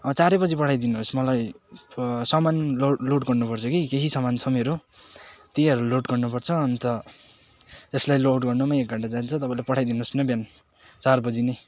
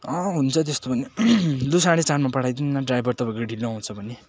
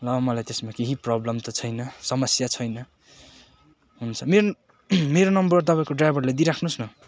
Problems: none marked